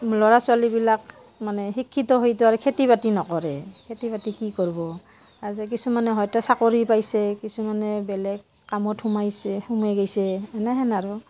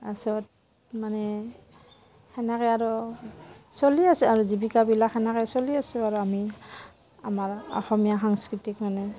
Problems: constant background noise, background conversations at intervals